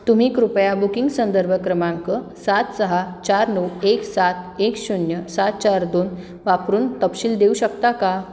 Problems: constant background noise, background conversations at intervals, echo